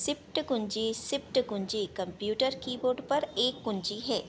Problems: none marked